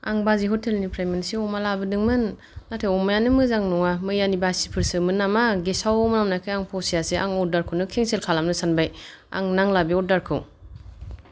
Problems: none marked